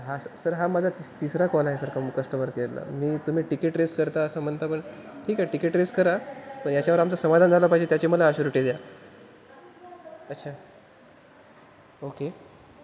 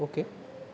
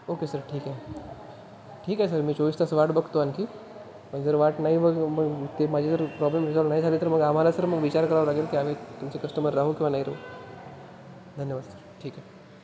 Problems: constant background noise